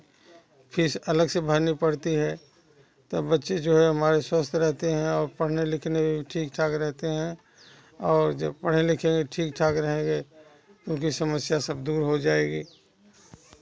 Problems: background sounds at intervals, continuous background conversations